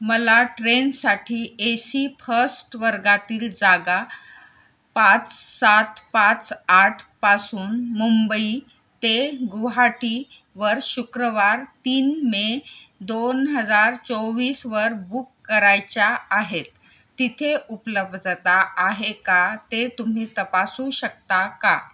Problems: none marked